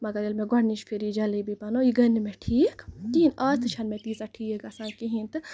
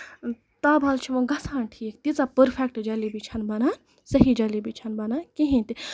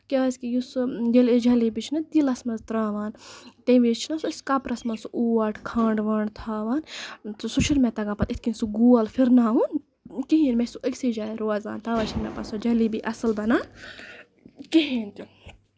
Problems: background sounds at intervals